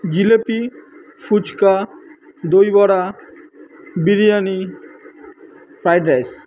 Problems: constant background noise